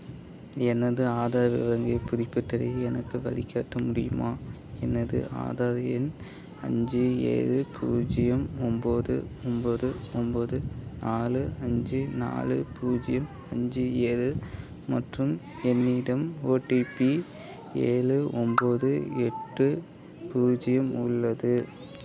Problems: background conversations at intervals